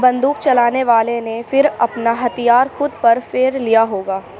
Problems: none marked